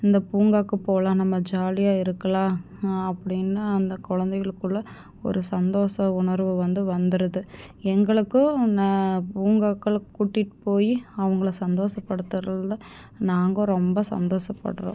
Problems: none marked